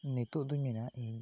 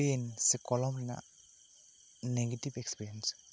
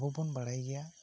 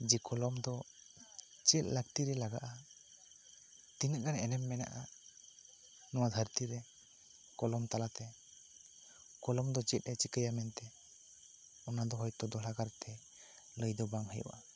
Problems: constant background noise